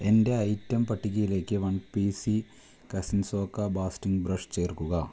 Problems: low volume